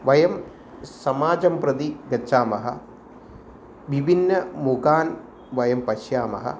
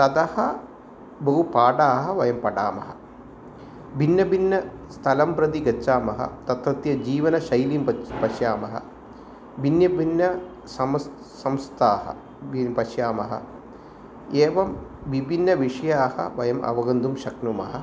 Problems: constant background noise